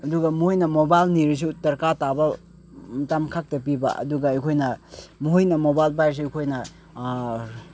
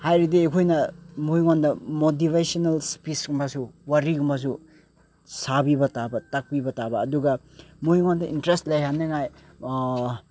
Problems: background sounds at intervals